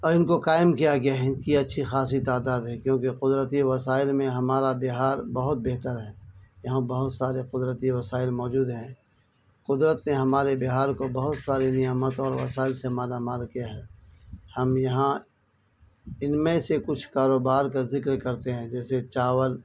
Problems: constant background noise